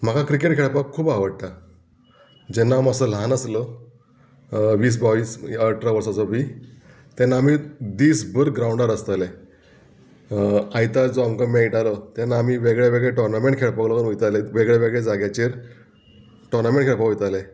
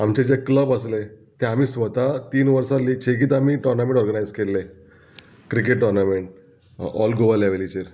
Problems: background sounds at intervals